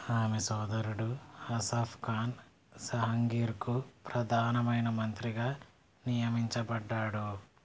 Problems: low volume